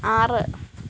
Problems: constant background noise